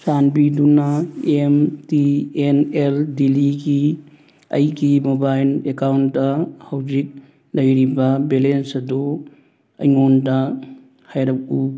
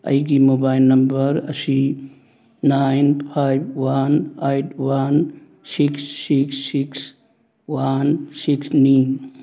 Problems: none marked